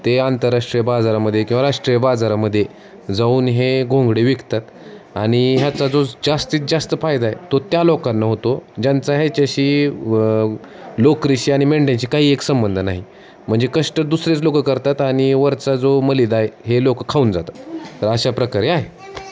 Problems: none marked